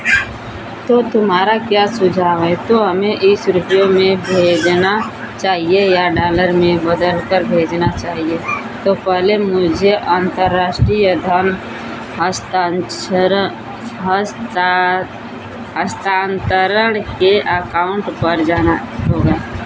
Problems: none marked